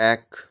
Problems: none marked